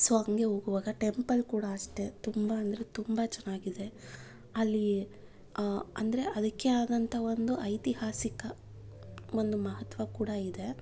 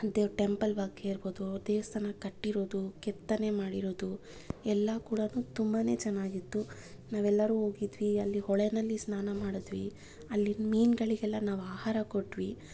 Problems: none marked